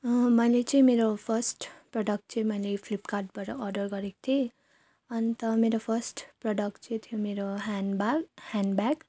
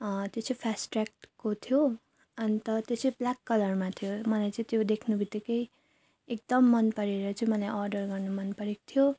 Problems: none marked